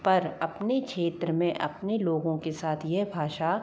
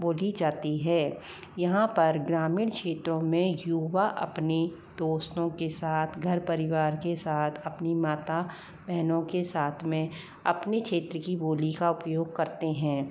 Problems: low volume